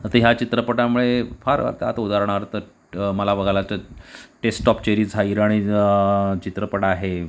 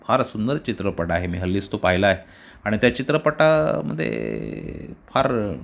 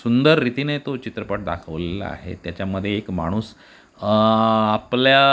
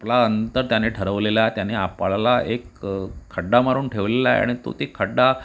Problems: none marked